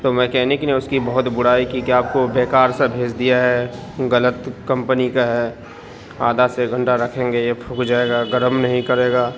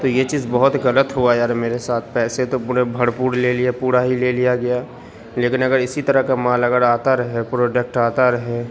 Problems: constant background noise